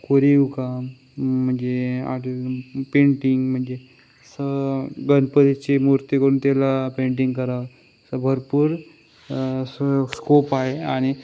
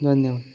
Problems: background sounds at intervals